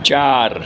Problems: constant background noise